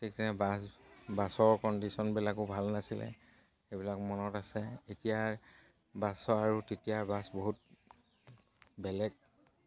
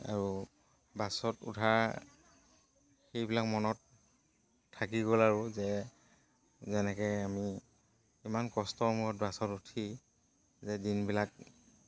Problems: none marked